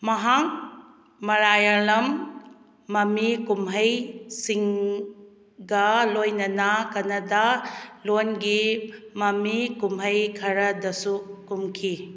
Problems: background sounds at intervals